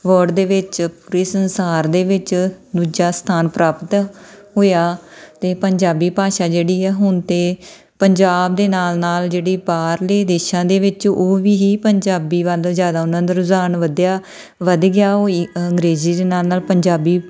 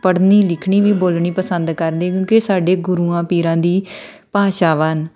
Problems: background sounds at intervals